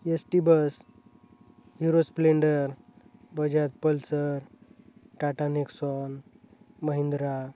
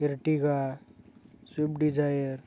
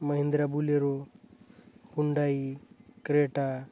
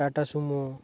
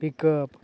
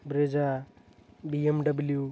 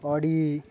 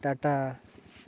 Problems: none marked